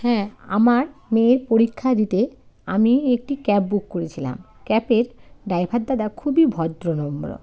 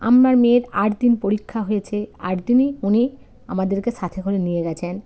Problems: background sounds at intervals